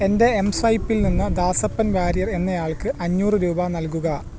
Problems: none marked